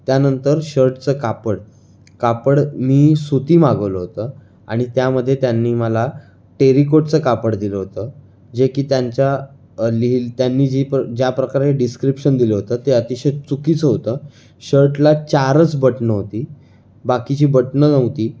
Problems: background sounds at intervals